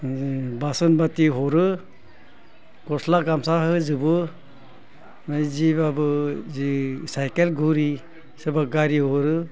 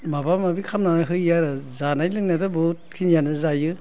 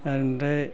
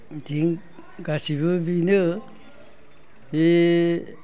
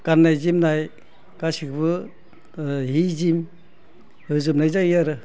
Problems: constant background noise